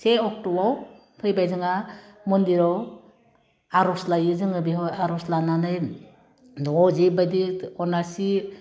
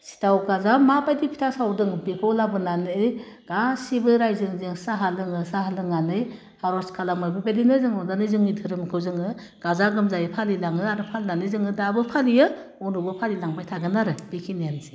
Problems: constant background noise